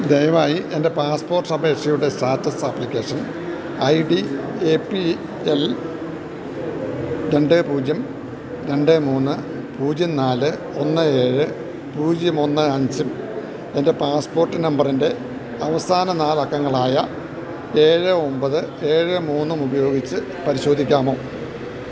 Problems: none marked